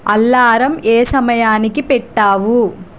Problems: constant background noise